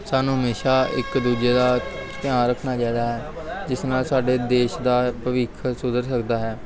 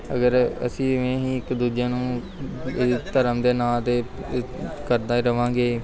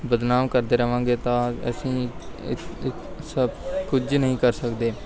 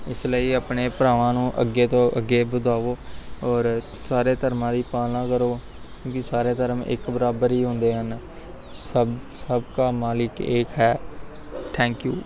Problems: background sounds at intervals, background conversations at intervals